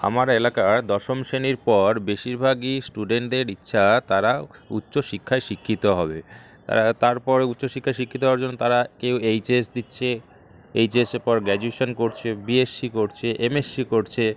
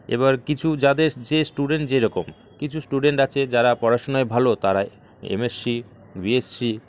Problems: none marked